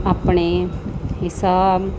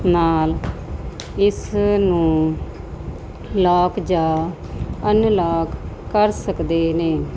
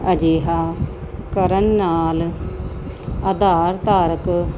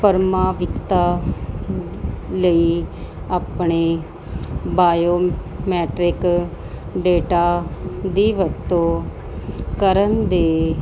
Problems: constant background noise